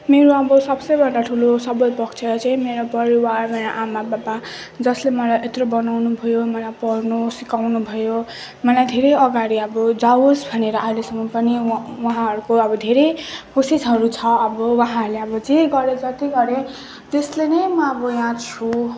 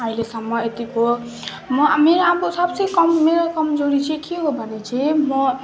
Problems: none marked